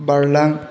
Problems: none marked